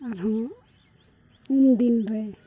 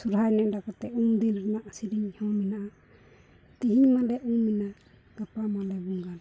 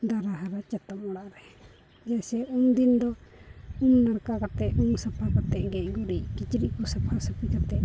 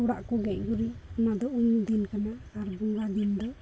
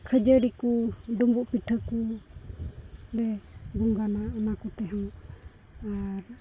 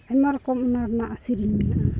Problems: background sounds at intervals, low volume